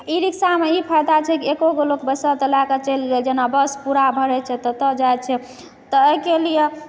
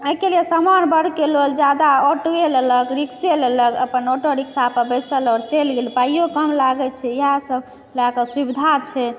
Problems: background sounds at intervals